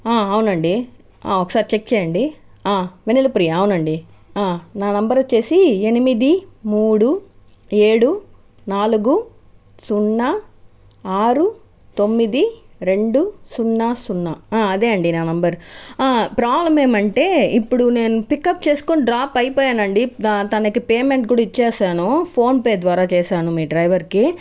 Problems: background conversations at intervals